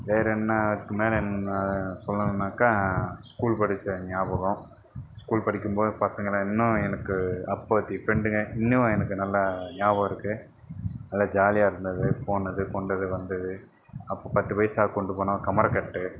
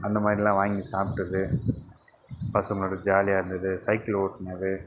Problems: none marked